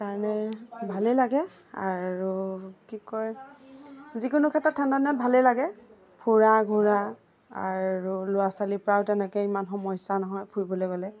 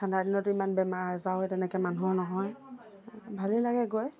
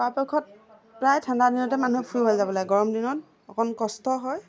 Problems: none marked